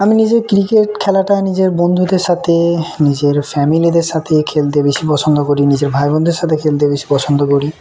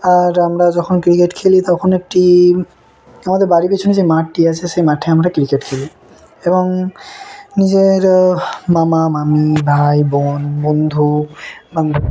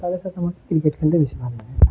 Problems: none marked